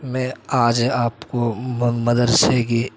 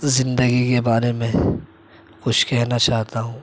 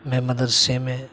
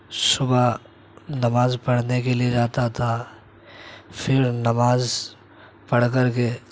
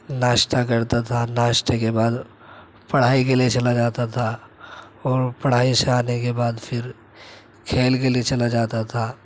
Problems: constant background noise